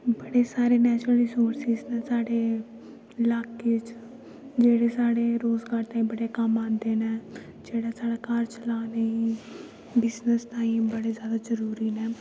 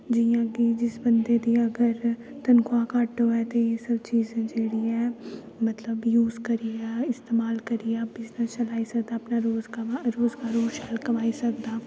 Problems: constant background noise, echo